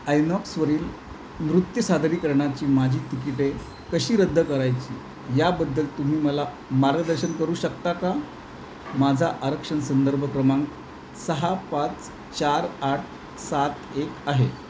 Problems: constant background noise